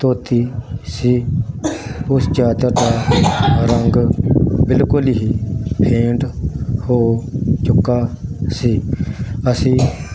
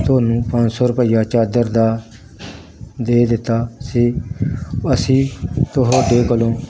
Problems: constant background noise